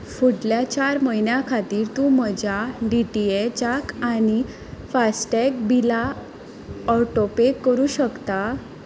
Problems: none marked